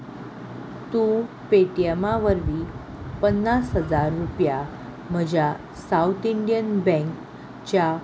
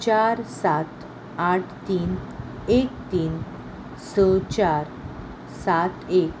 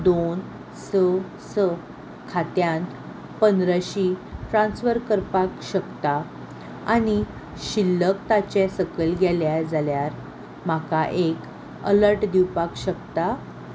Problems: none marked